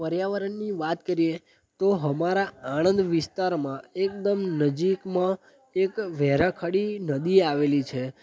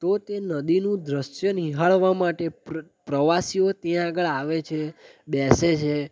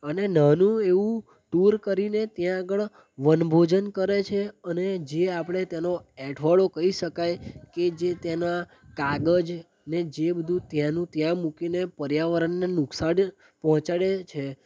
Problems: background conversations at intervals